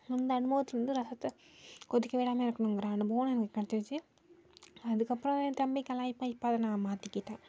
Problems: low volume